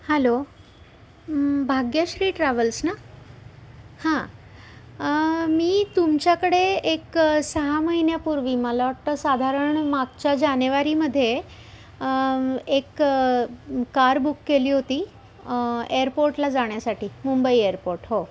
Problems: constant background noise